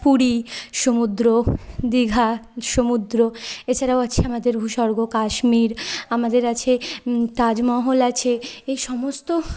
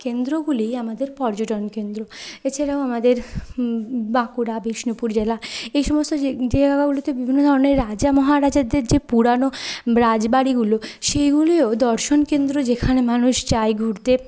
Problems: constant background noise, background conversations at intervals